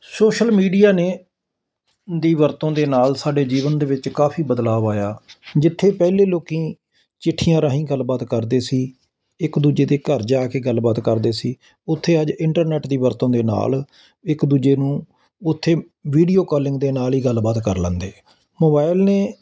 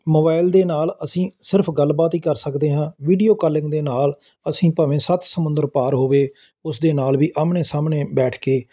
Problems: constant background noise